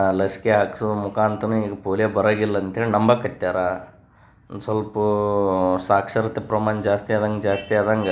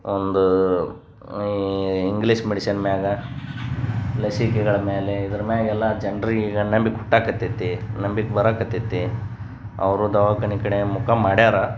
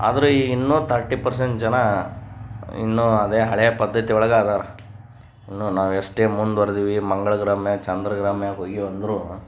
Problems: none marked